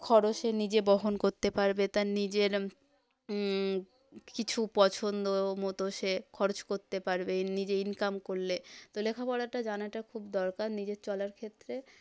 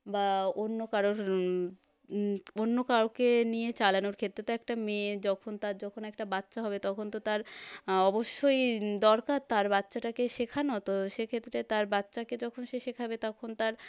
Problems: none marked